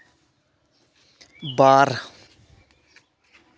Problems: constant background noise